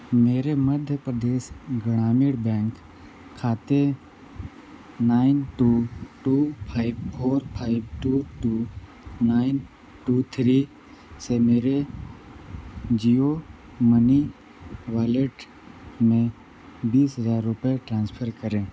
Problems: constant background noise